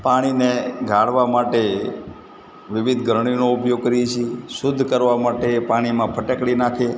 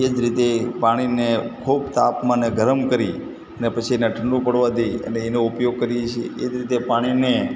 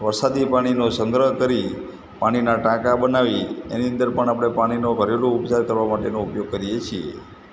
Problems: constant background noise